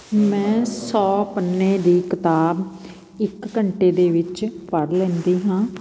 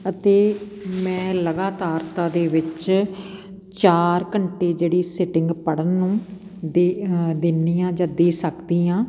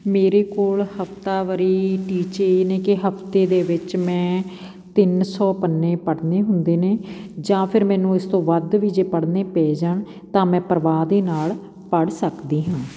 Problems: none marked